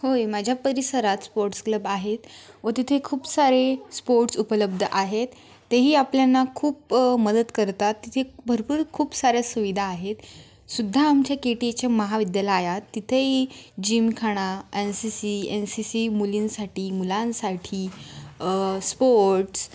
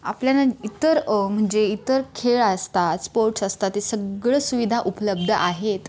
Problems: constant background noise, background conversations at intervals